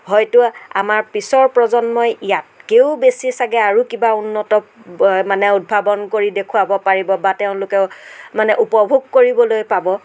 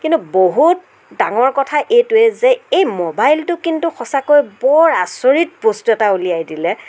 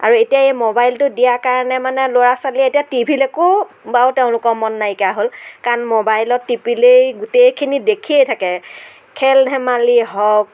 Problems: none marked